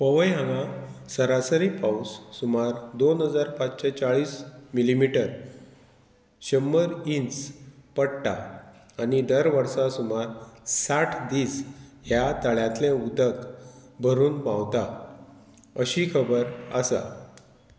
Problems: none marked